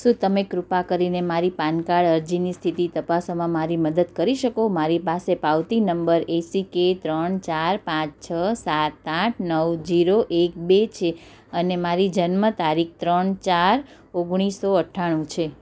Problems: none marked